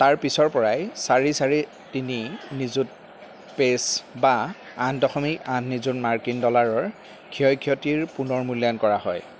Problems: background sounds at intervals